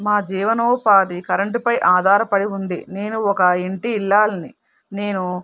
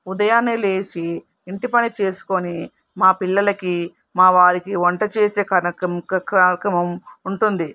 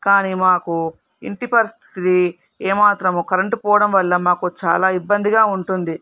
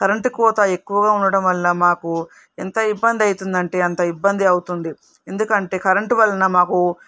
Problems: none marked